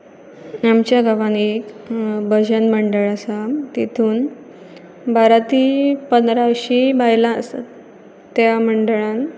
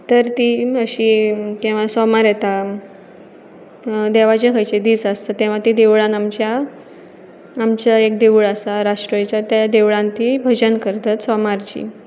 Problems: background sounds at intervals